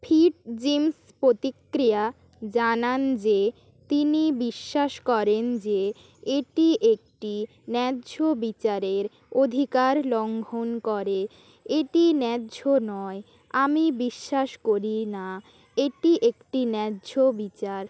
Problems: constant background noise